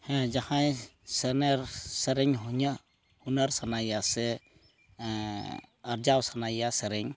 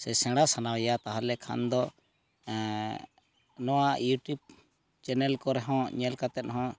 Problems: background sounds at intervals